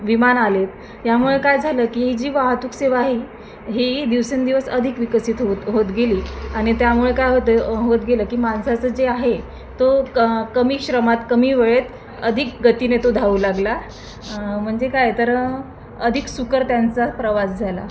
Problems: none marked